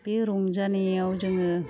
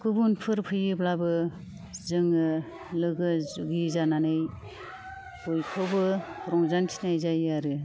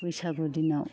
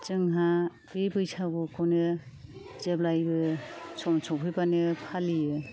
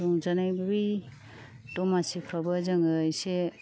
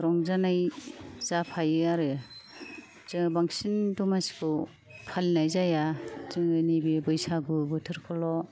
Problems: low volume